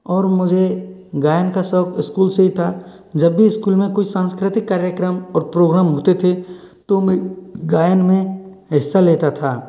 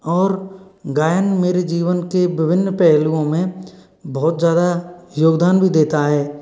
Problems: background sounds at intervals